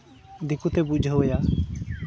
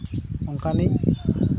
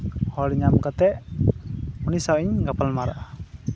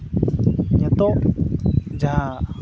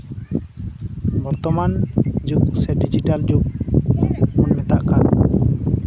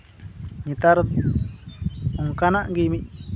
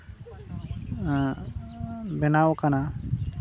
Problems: background sounds at intervals